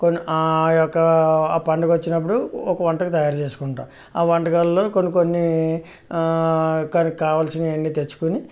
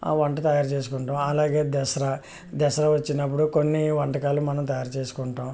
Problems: none marked